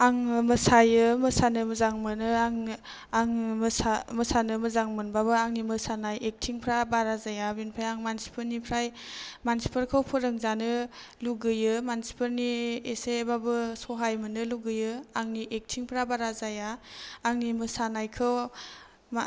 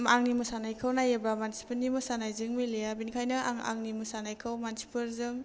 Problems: none marked